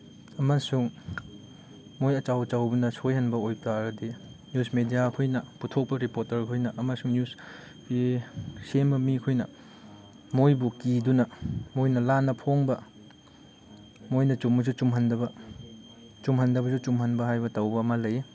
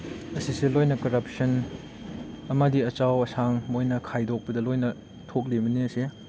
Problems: background sounds at intervals